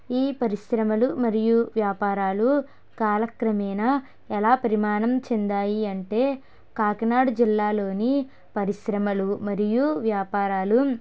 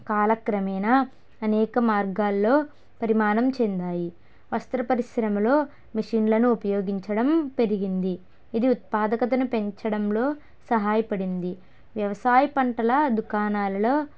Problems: none marked